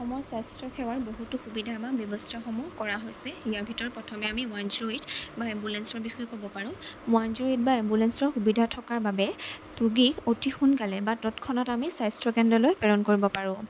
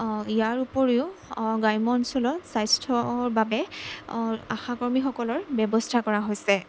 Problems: constant background noise